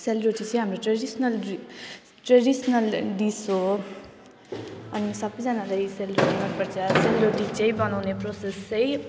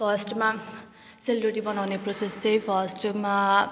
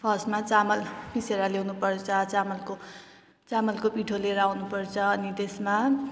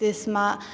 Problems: none marked